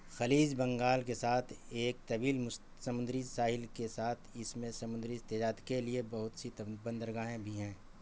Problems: constant background noise